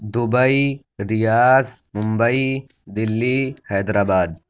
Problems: none marked